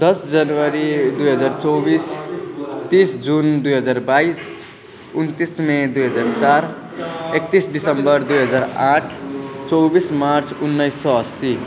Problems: continuous background conversations